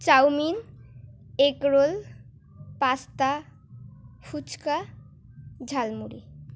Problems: none marked